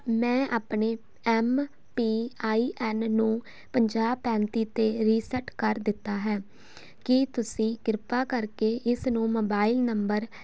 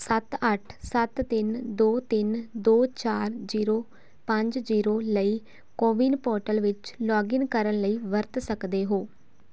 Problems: none marked